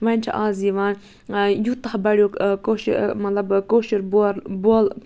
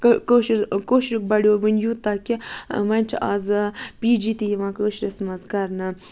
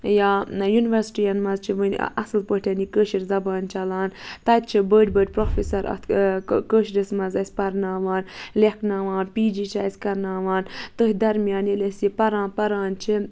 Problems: background sounds at intervals